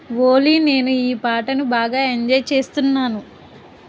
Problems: constant background noise